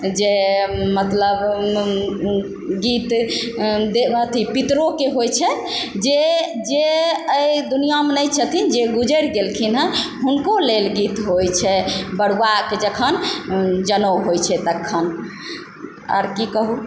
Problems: background sounds at intervals